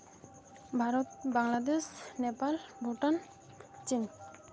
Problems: none marked